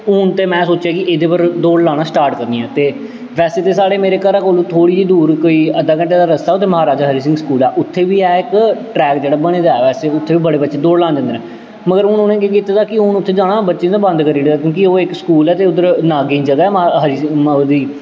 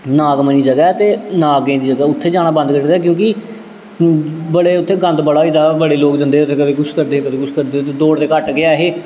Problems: constant background noise, echo